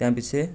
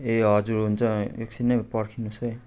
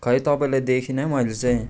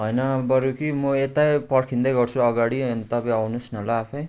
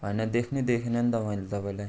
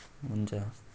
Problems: background sounds at intervals